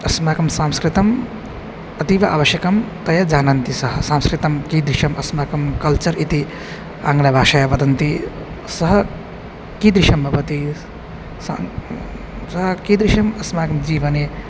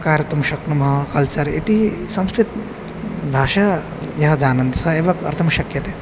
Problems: constant background noise